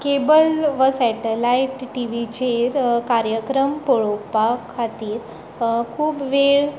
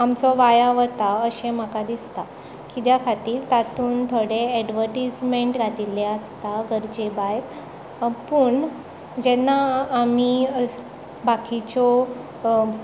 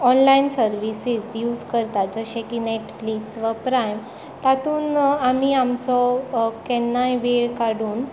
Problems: background sounds at intervals